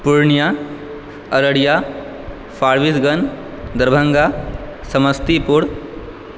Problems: none marked